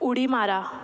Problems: constant background noise